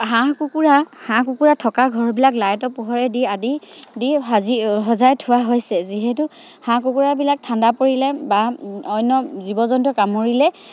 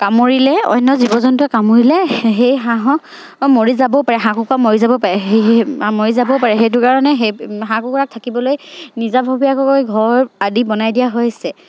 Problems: none marked